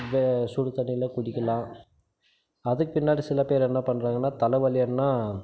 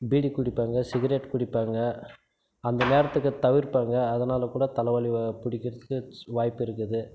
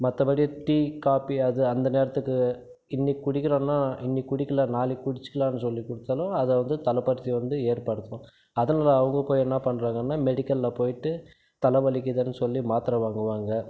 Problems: constant background noise